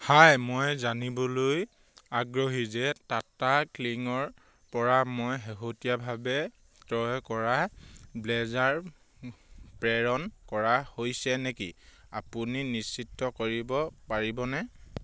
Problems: none marked